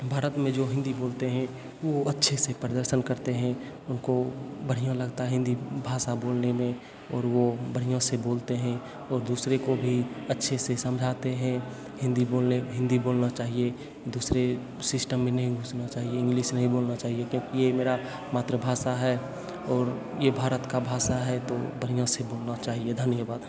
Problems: constant background noise